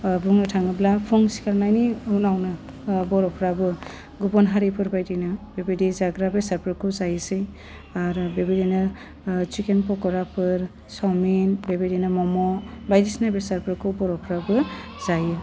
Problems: low volume